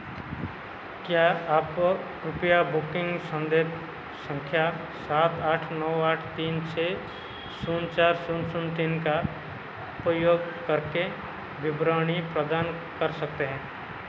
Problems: constant background noise